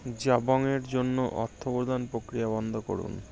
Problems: none marked